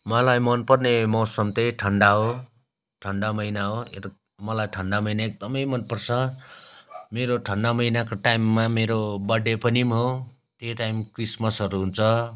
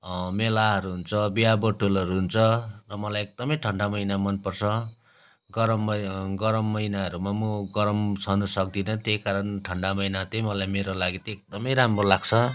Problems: none marked